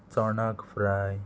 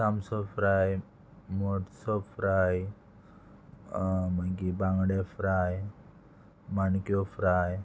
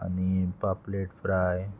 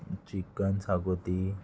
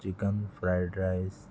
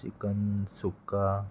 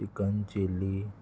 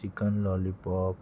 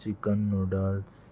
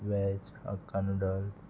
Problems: constant background noise, continuous background conversations